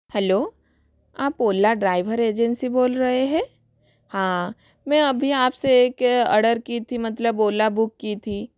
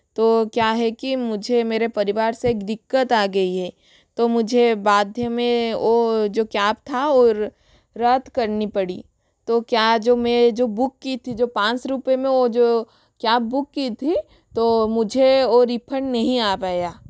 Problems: none marked